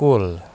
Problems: none marked